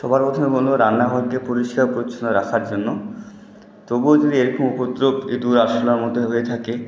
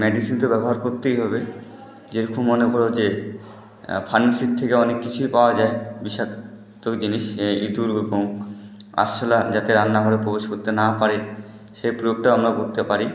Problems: continuous background conversations